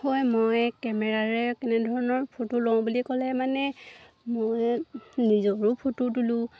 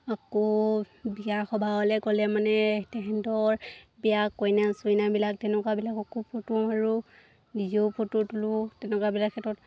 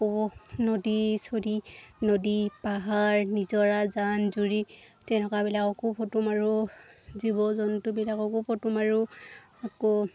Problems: background sounds at intervals